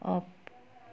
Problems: low volume